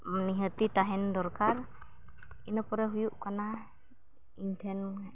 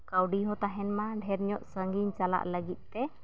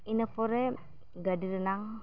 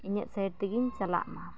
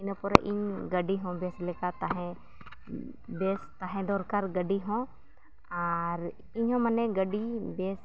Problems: background sounds at intervals